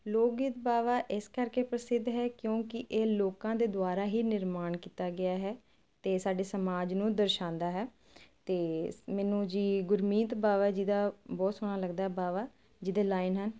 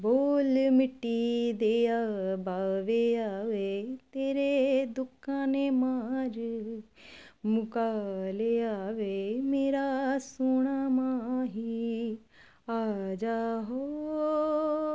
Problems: constant background noise